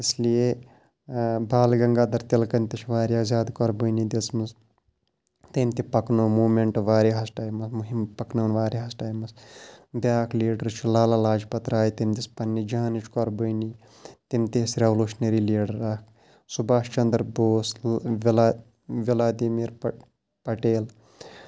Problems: constant background noise